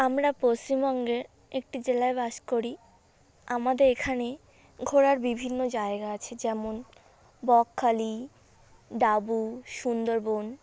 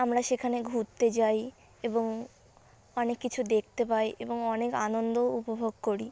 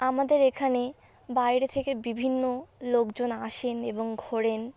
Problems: constant background noise